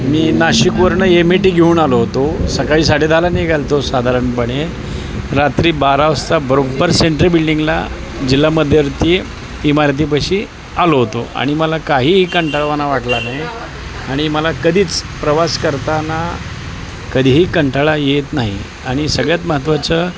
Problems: constant background noise, continuous background conversations